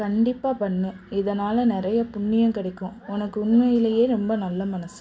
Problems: none marked